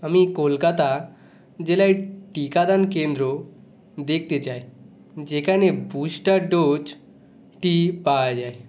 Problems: none marked